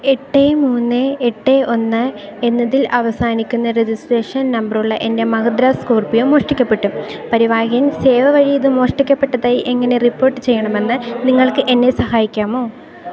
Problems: constant background noise